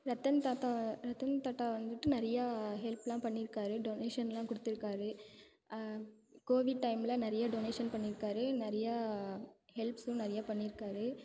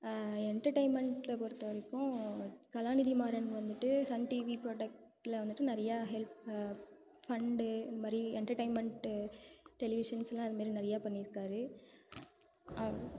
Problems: background sounds at intervals